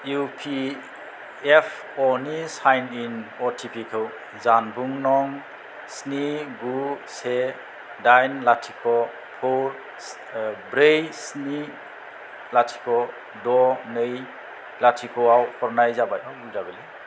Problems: none marked